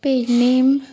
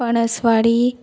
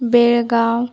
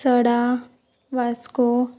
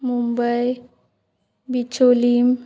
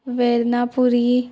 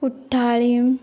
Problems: background sounds at intervals